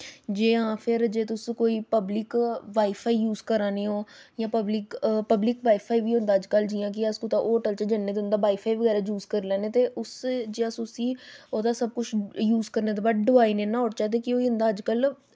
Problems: none marked